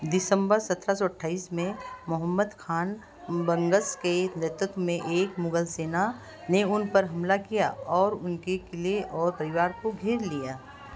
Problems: constant background noise